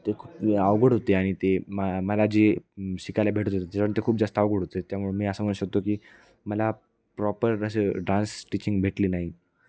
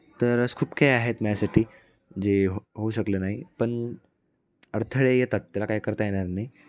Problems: background sounds at intervals, continuous background conversations